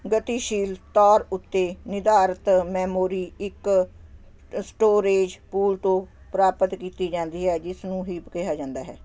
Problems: constant background noise